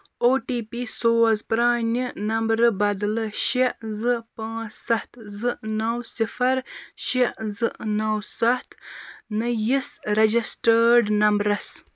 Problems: constant background noise